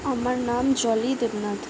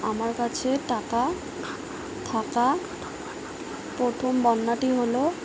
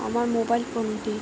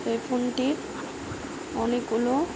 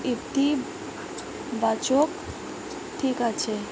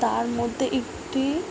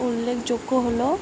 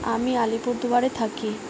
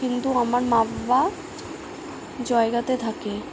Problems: constant background noise